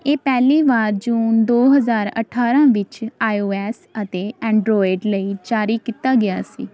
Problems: none marked